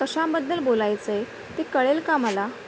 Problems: constant background noise